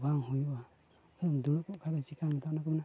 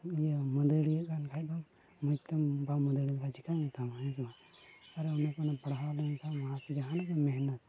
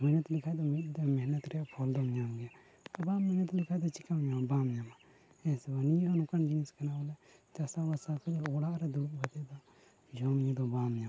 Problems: none marked